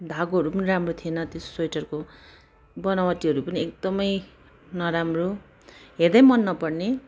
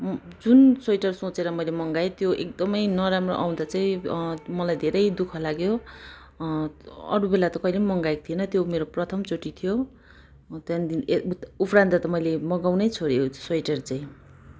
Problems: background sounds at intervals